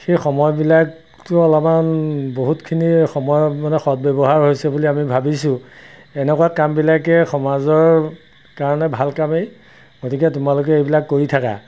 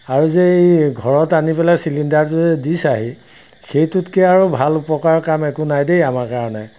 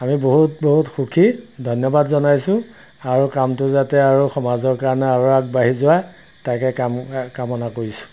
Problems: constant background noise